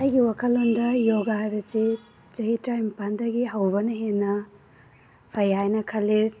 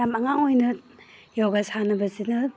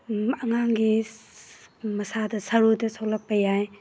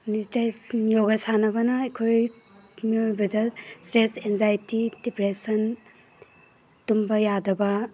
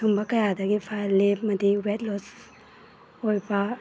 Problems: background sounds at intervals